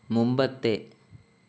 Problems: constant background noise